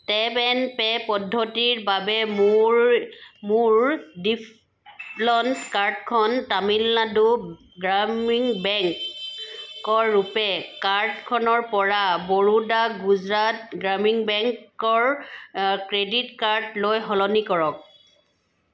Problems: background sounds at intervals